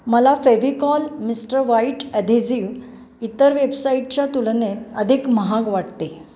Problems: background sounds at intervals